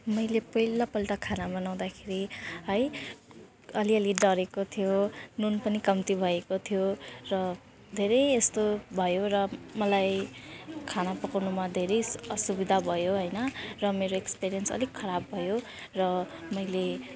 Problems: none marked